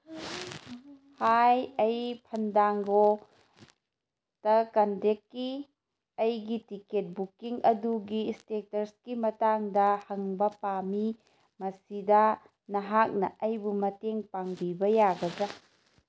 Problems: none marked